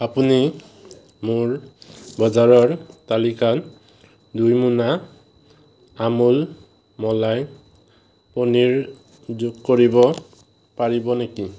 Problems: constant background noise